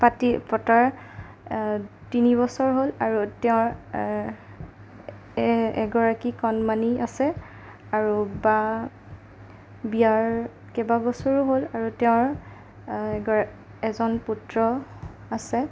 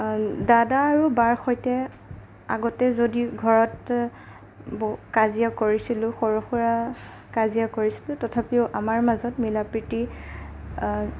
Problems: none marked